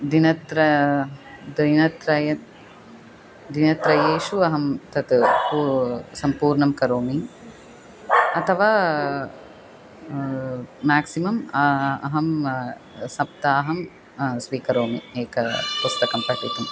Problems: constant background noise, continuous background conversations